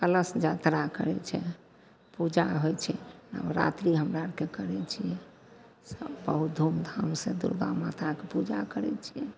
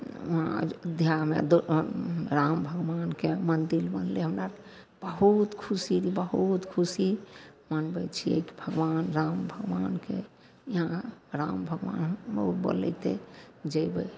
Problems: low volume